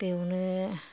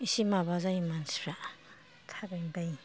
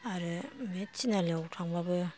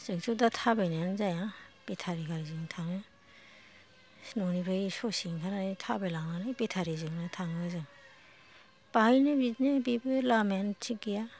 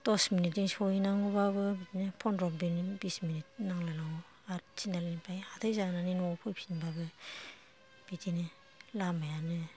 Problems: background sounds at intervals, low volume